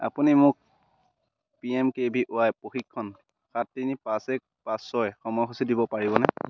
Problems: constant background noise